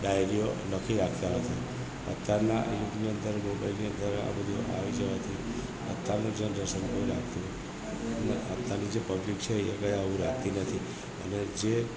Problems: none marked